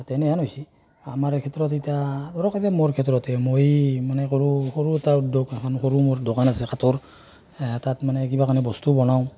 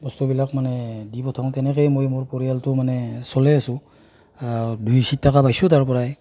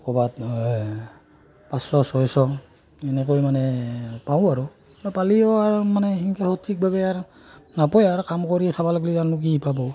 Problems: constant background noise, background conversations at intervals